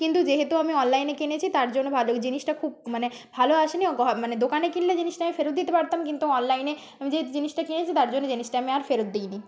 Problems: background conversations at intervals